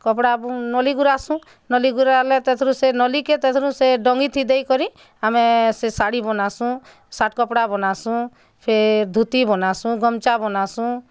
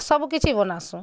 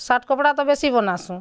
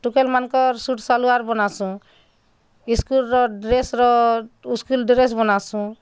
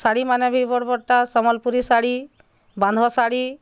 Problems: none marked